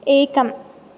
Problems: none marked